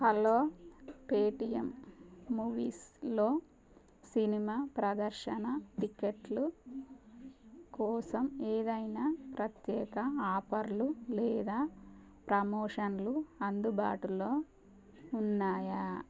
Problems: none marked